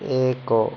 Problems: constant background noise